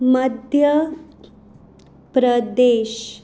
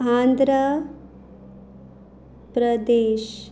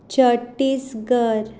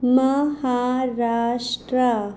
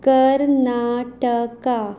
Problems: constant background noise